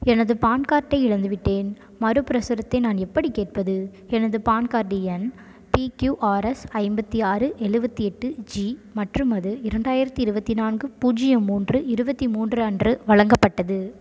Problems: background sounds at intervals